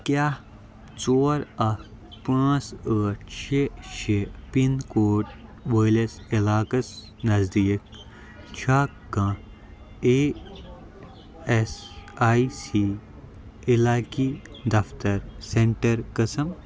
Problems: constant background noise